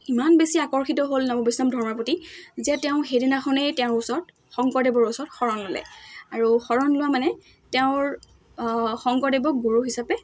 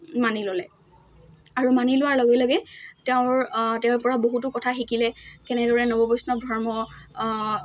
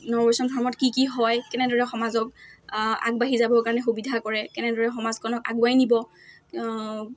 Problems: none marked